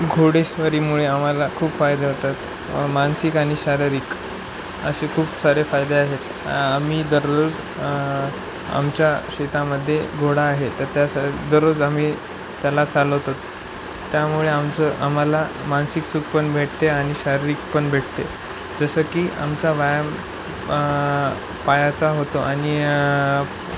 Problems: none marked